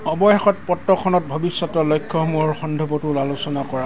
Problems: background sounds at intervals